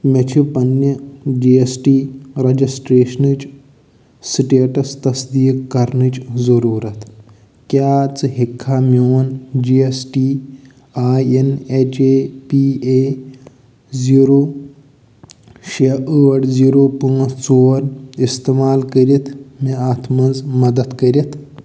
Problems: none marked